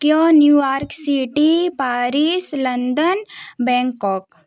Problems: none marked